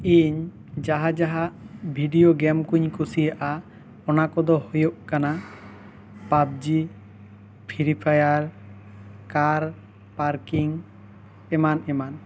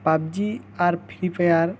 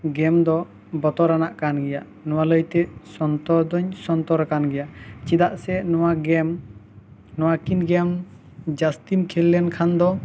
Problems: background sounds at intervals